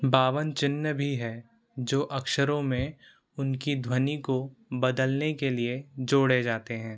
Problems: constant background noise